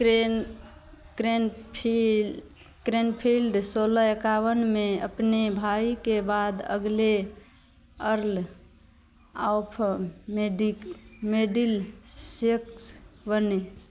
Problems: constant background noise